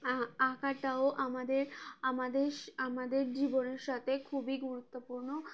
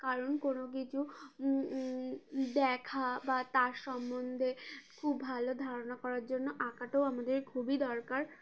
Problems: constant background noise, background conversations at intervals